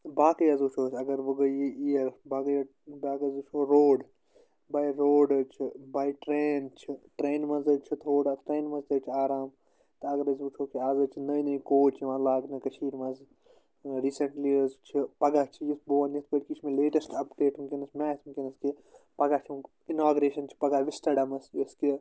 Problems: constant background noise